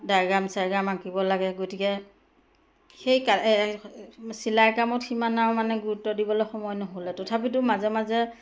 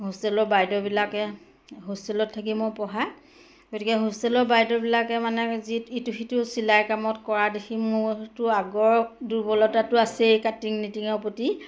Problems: none marked